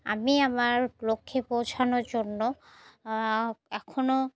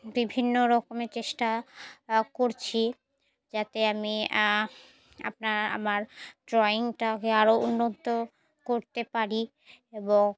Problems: none marked